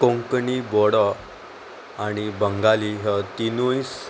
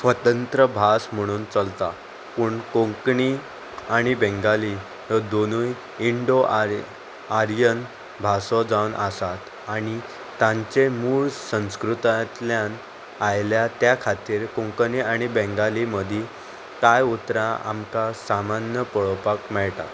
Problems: constant background noise